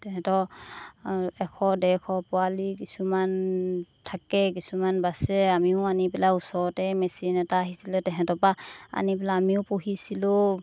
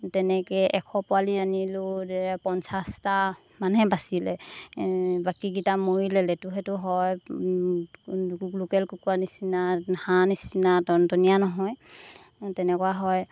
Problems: constant background noise